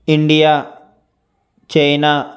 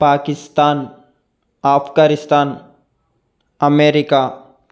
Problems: constant background noise